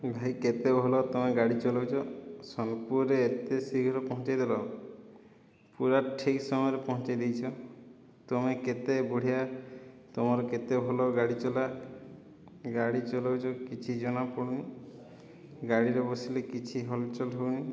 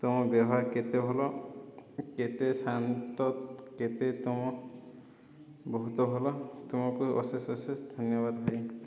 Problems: low volume